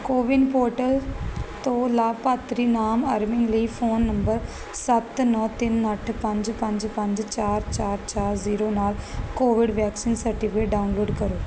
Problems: constant background noise